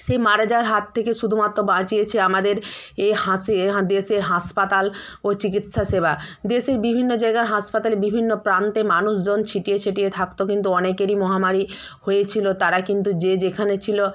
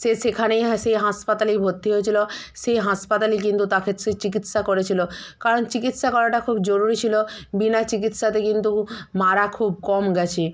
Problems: none marked